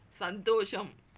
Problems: none marked